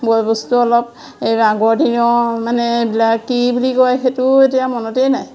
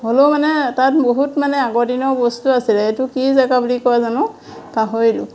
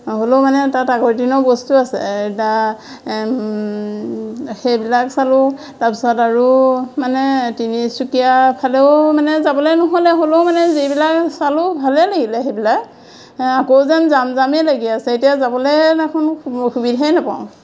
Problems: constant background noise, background conversations at intervals